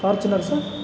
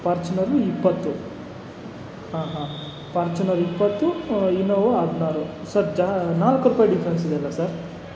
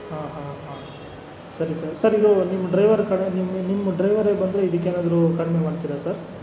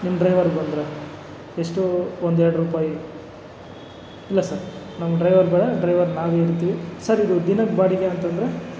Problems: none marked